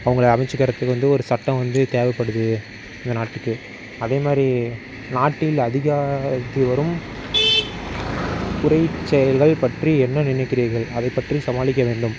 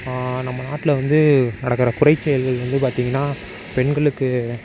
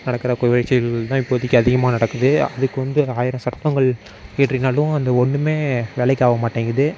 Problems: background sounds at intervals